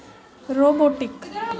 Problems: constant background noise